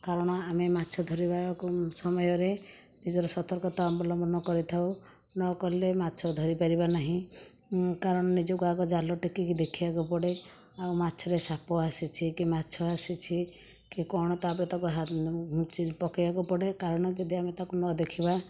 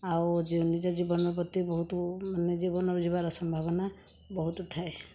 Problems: background sounds at intervals